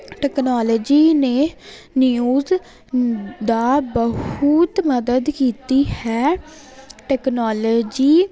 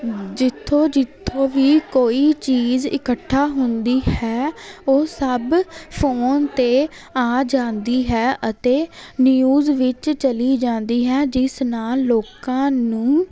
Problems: constant background noise